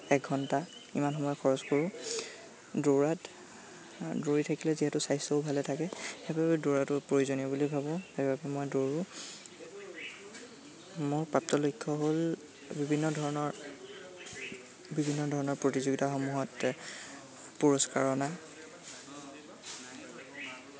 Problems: constant background noise